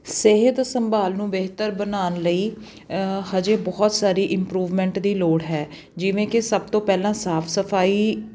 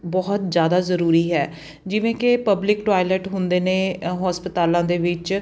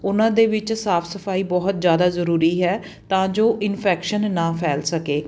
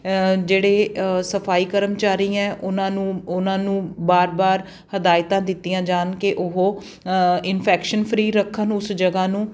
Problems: background sounds at intervals